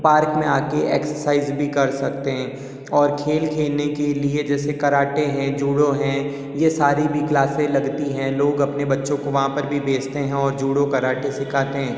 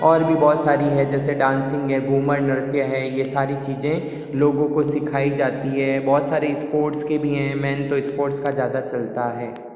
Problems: constant background noise, echo